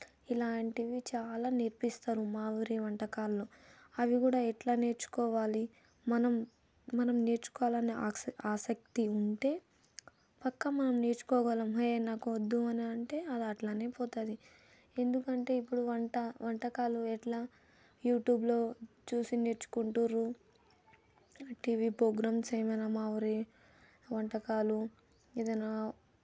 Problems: none marked